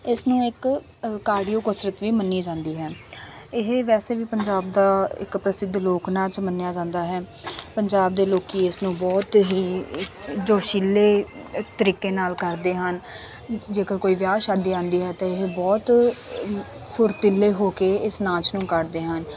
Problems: constant background noise, background conversations at intervals